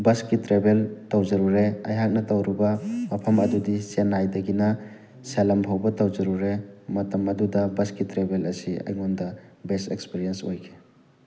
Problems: background sounds at intervals